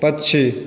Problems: constant background noise, echo